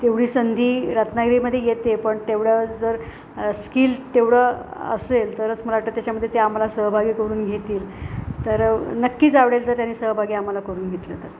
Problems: constant background noise